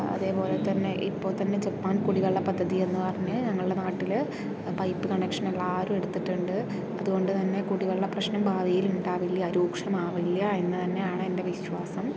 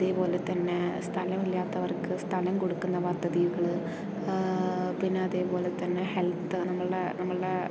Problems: constant background noise, low volume